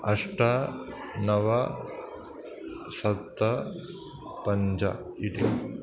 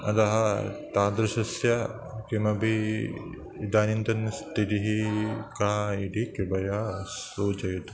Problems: none marked